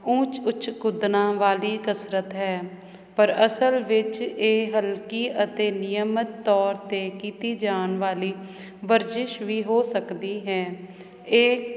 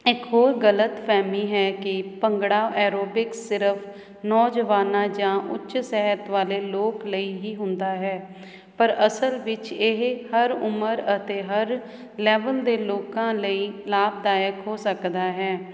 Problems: none marked